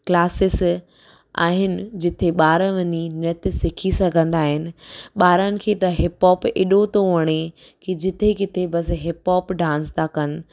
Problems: none marked